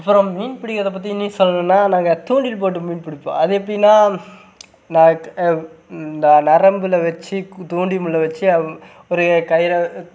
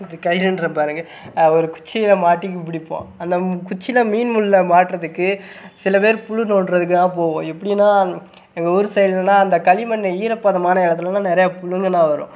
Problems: background sounds at intervals